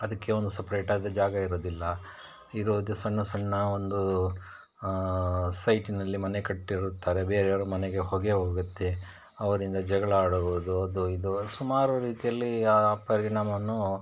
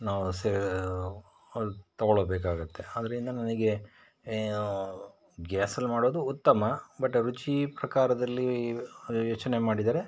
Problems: none marked